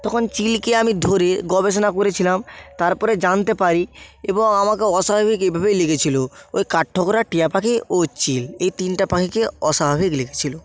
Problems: constant background noise